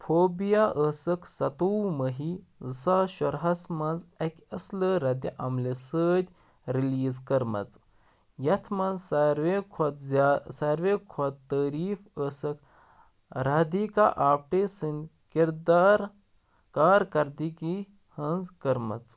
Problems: none marked